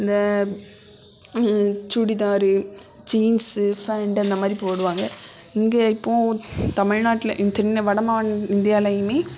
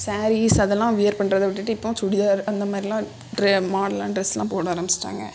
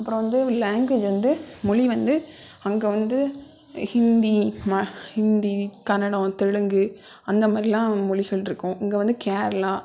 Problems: constant background noise